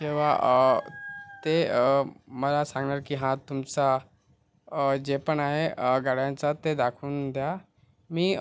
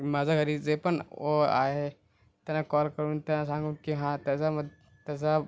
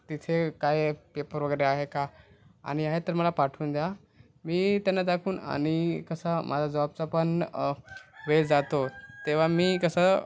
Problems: constant background noise